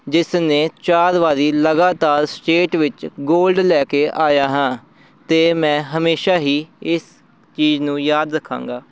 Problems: background sounds at intervals